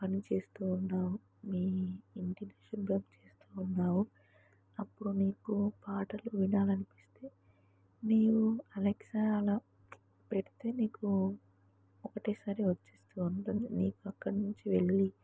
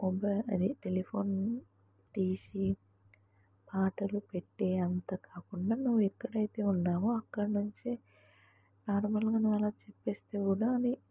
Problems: low volume